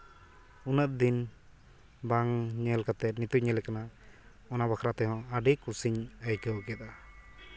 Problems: background sounds at intervals, background conversations at intervals